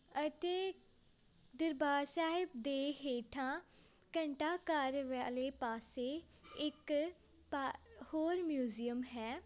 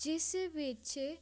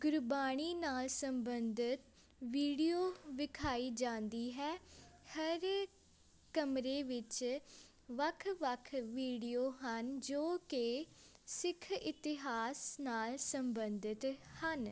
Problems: constant background noise, background conversations at intervals